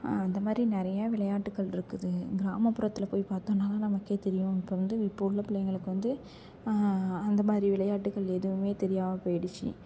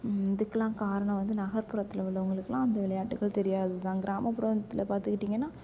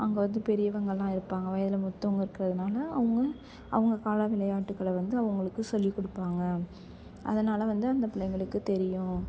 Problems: background sounds at intervals, background conversations at intervals